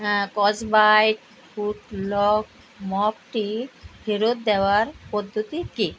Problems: constant background noise